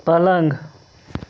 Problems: none marked